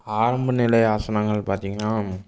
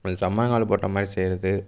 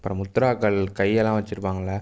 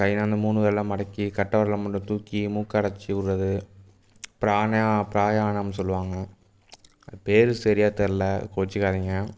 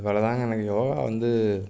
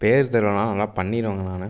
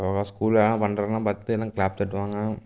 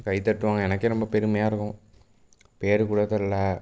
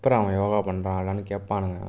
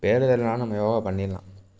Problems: background sounds at intervals